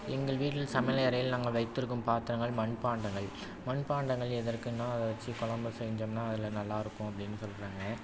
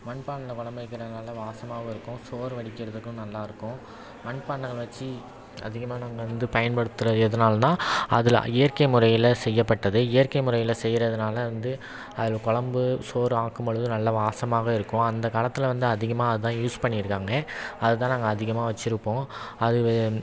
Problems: constant background noise